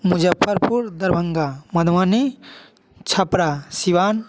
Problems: echo